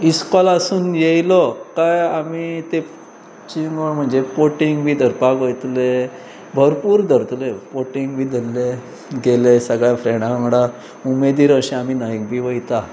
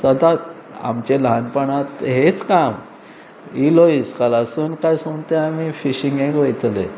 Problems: background sounds at intervals